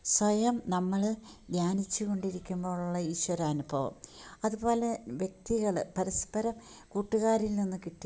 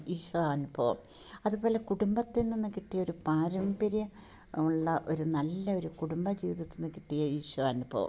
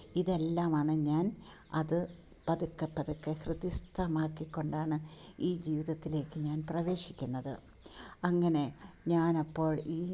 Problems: background sounds at intervals